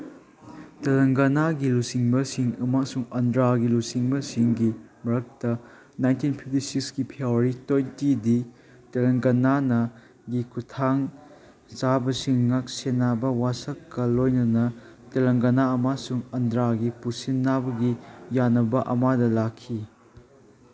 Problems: background sounds at intervals, background conversations at intervals